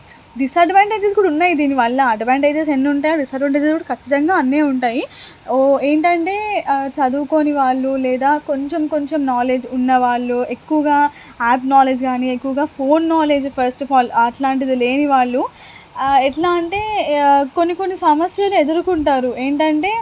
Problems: constant background noise